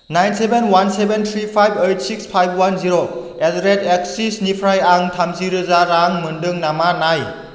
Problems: constant background noise